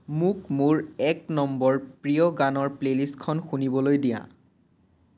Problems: none marked